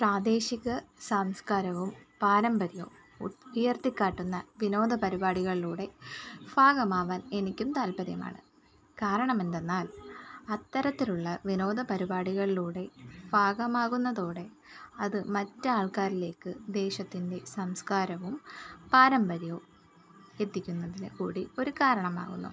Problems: none marked